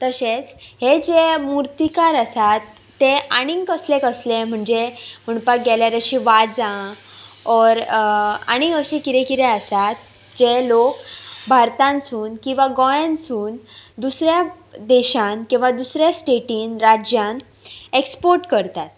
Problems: background sounds at intervals